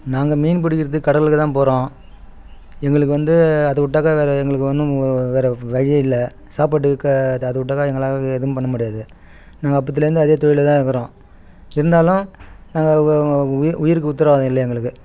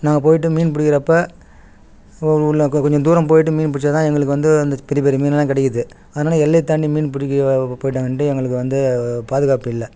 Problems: background sounds at intervals